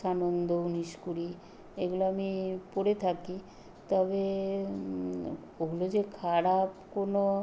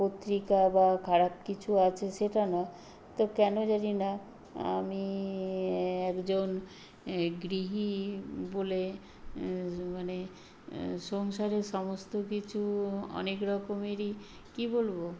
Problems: background sounds at intervals